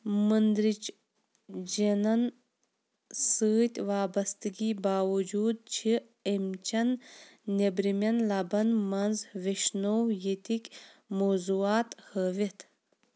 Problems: none marked